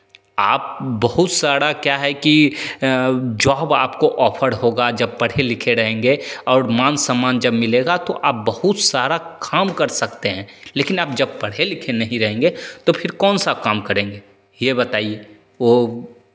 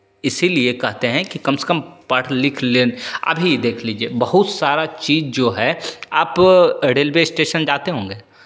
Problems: constant background noise, echo